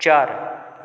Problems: background sounds at intervals